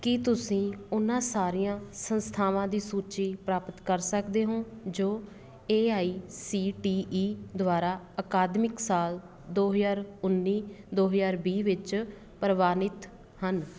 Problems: none marked